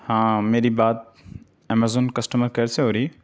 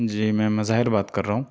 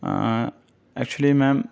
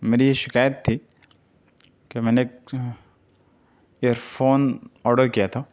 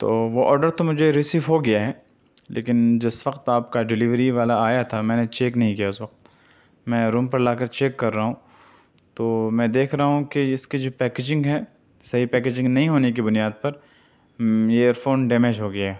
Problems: none marked